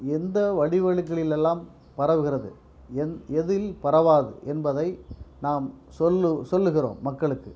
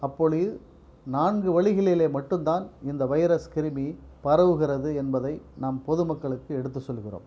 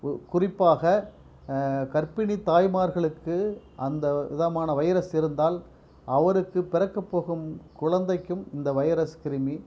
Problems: background sounds at intervals